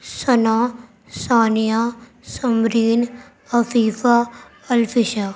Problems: constant background noise